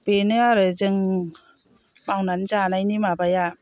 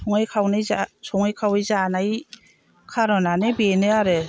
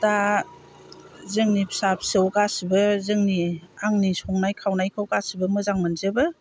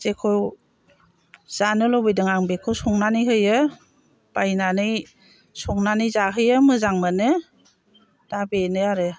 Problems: low volume